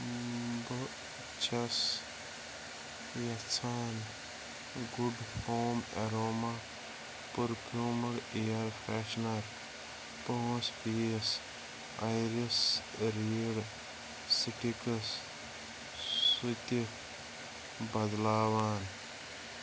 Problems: constant background noise, low volume